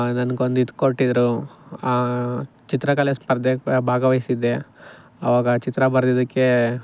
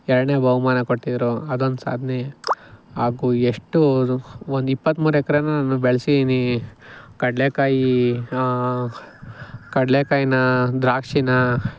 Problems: none marked